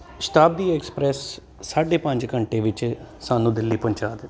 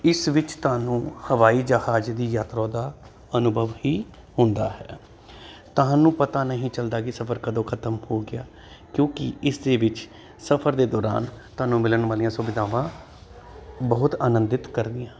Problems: constant background noise